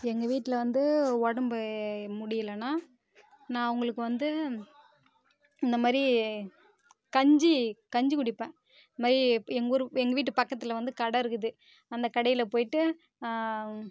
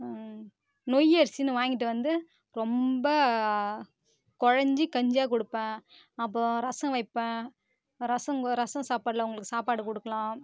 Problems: constant background noise